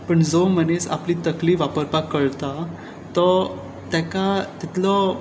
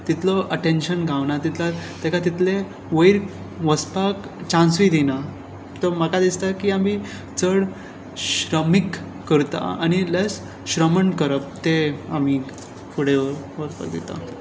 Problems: constant background noise